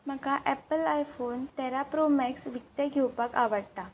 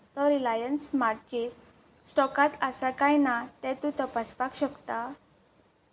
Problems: background sounds at intervals